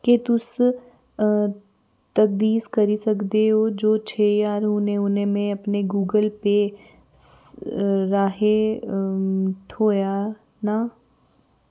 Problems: background sounds at intervals